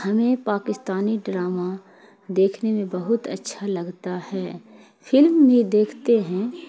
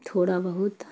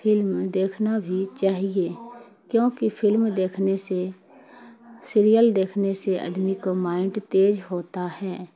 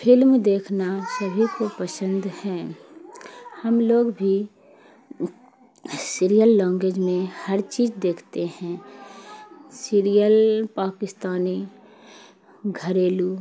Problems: constant background noise